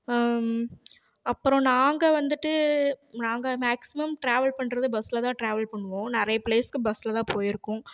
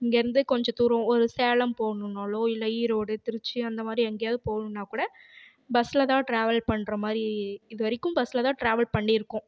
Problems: none marked